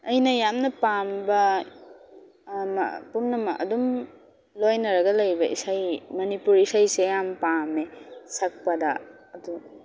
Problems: background sounds at intervals